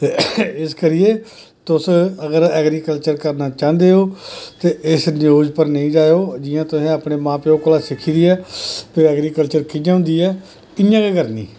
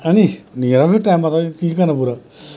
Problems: constant background noise, background conversations at intervals